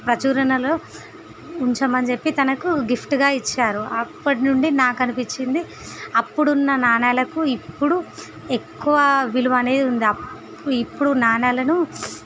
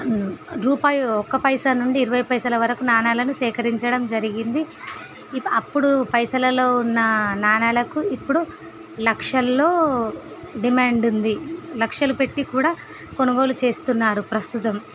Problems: none marked